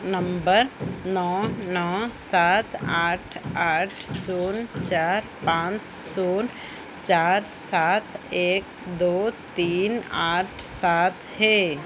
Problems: constant background noise